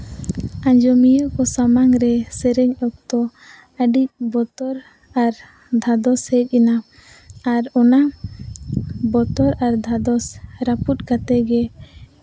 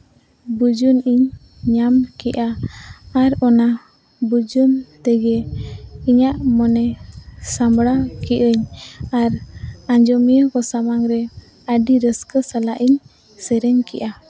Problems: none marked